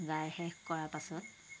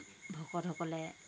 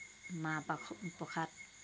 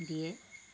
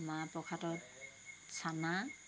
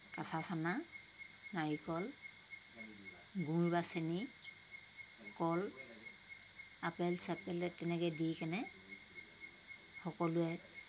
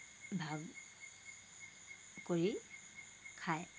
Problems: none marked